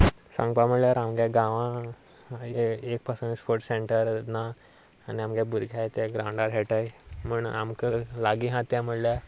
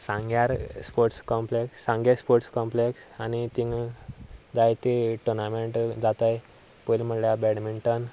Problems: none marked